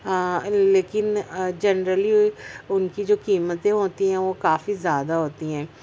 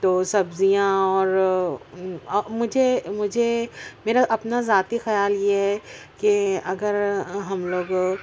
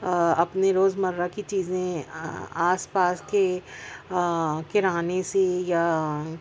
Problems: constant background noise, background conversations at intervals